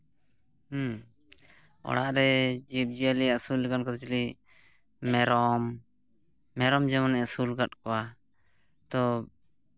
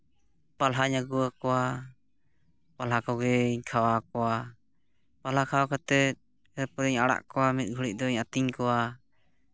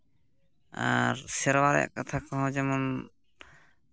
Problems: background sounds at intervals